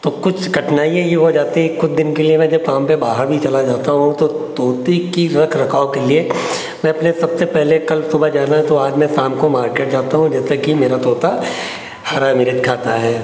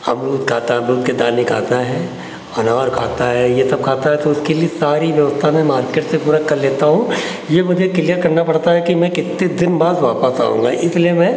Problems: constant background noise